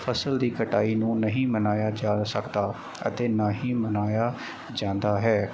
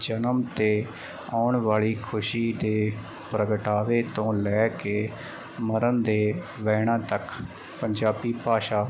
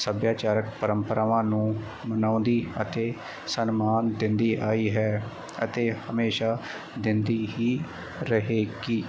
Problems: none marked